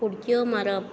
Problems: constant background noise